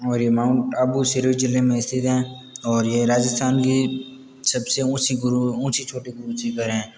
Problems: constant background noise, continuous background conversations